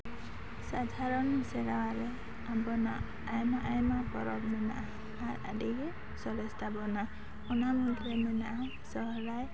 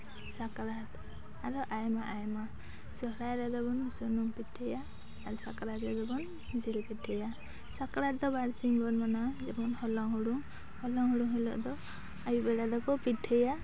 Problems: none marked